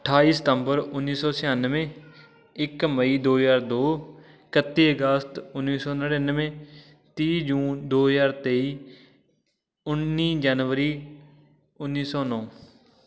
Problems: constant background noise, continuous background conversations